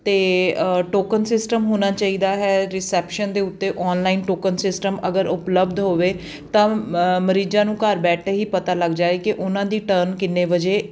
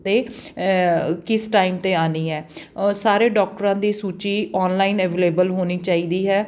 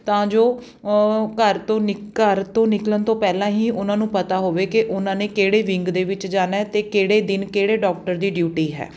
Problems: background sounds at intervals